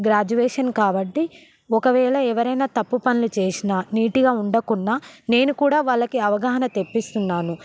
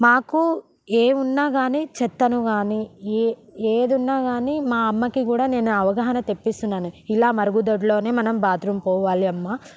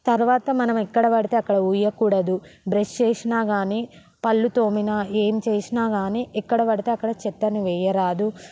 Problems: background sounds at intervals